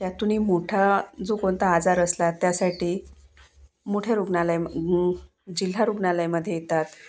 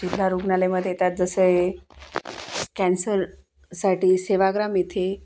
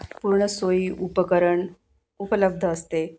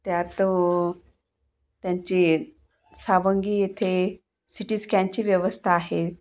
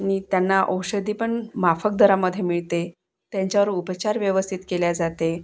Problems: none marked